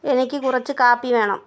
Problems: none marked